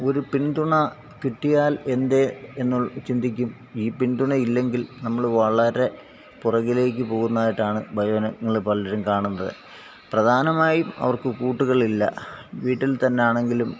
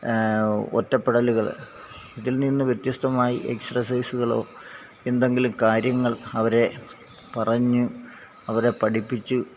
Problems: background sounds at intervals, low volume